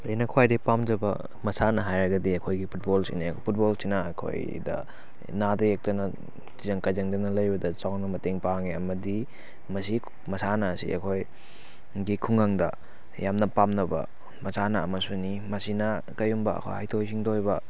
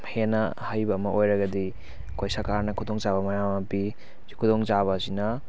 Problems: constant background noise